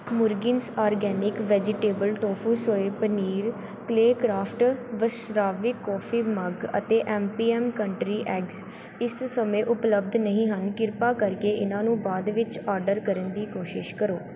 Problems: background sounds at intervals